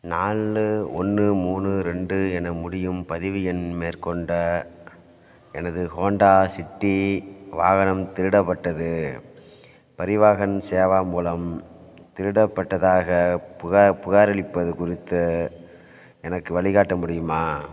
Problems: none marked